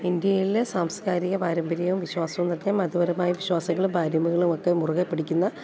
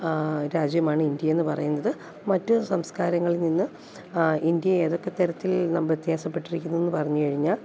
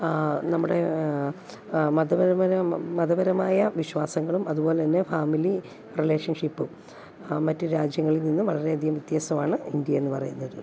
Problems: low volume